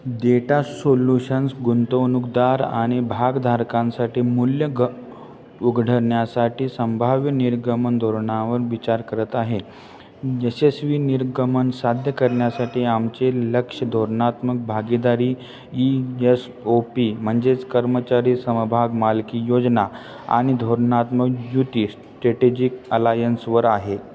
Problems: none marked